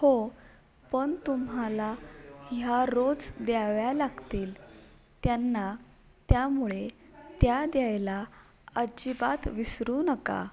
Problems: background conversations at intervals